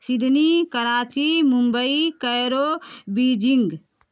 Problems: none marked